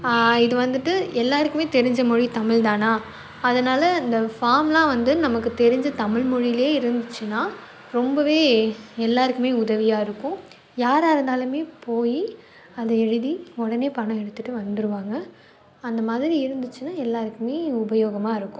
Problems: none marked